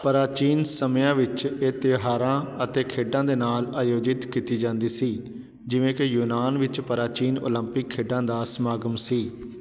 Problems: constant background noise